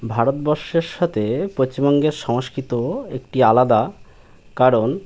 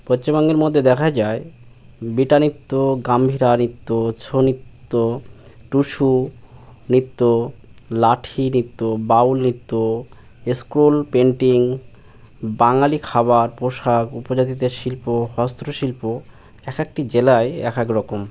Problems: none marked